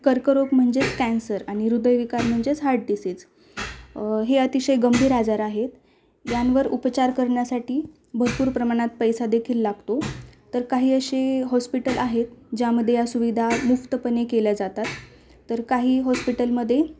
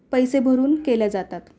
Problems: constant background noise